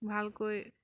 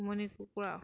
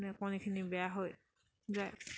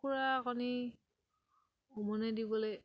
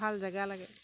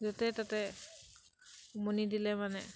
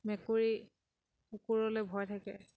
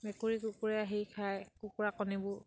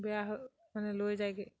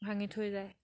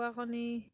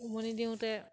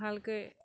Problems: background sounds at intervals